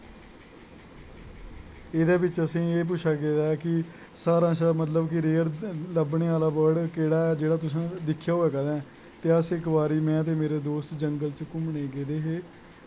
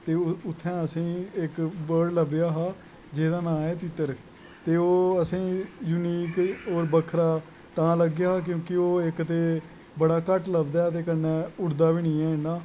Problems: constant background noise